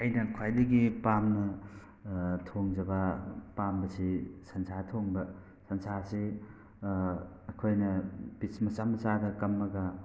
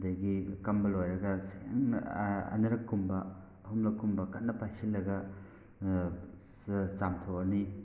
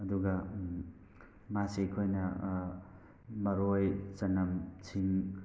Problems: background sounds at intervals